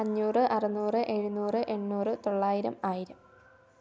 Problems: low volume